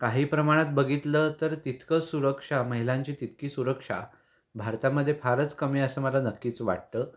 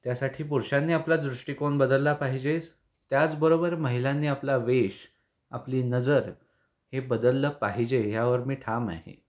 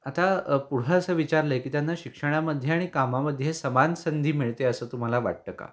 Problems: constant background noise